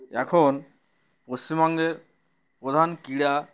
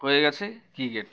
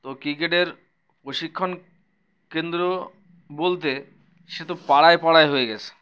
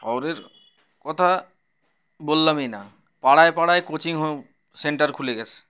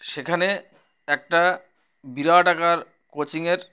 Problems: background sounds at intervals